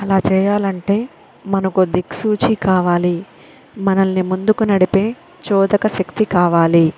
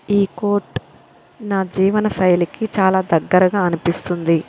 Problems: constant background noise